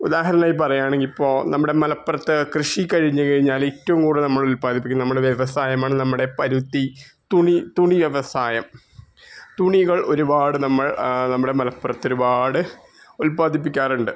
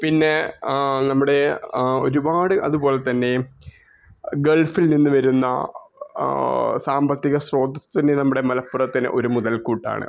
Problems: background sounds at intervals